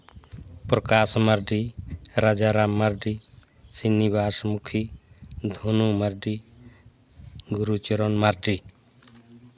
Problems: none marked